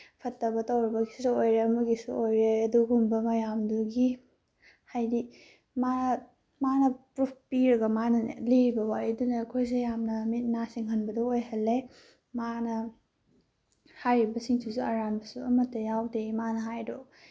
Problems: background sounds at intervals